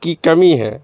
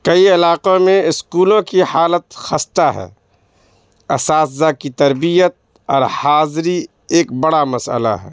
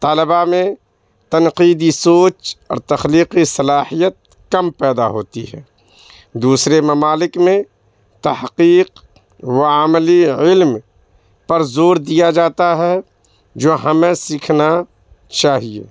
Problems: constant background noise